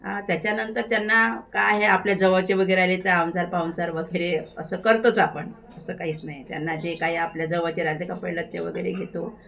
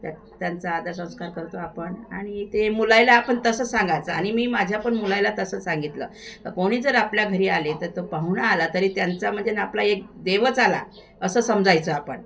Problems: constant background noise